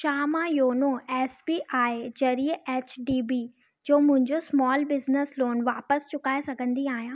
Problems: background sounds at intervals, echo